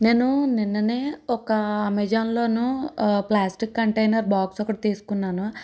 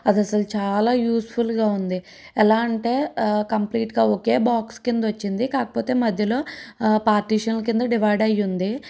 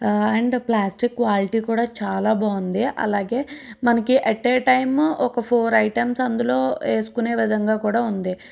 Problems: none marked